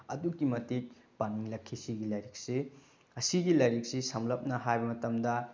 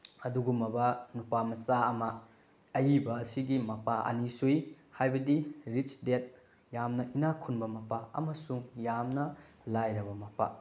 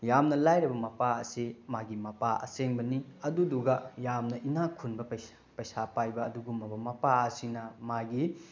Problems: background sounds at intervals